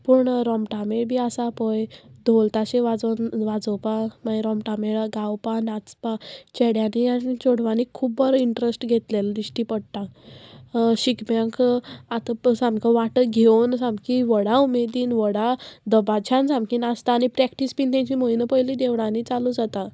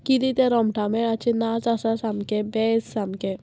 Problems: none marked